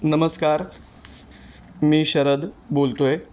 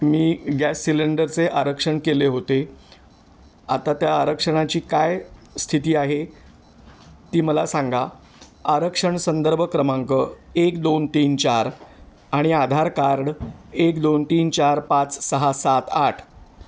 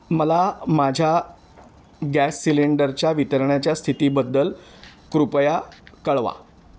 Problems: constant background noise